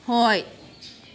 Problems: background sounds at intervals